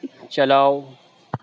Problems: constant background noise